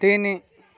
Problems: continuous background conversations